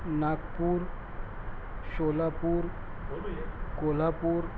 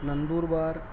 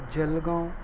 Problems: constant background noise, low volume